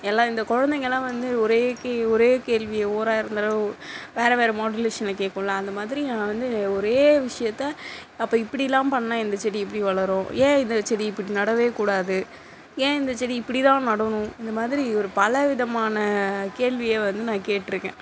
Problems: constant background noise